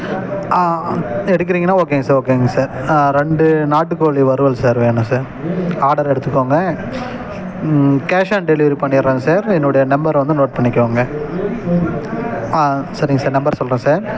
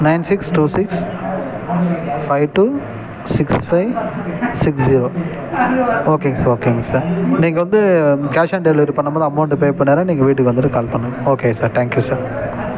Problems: background sounds at intervals